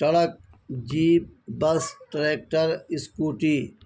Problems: none marked